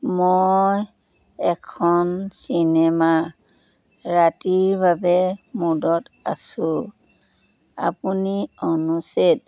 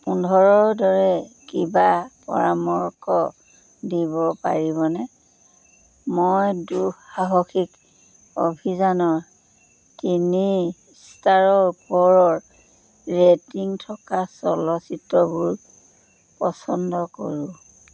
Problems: none marked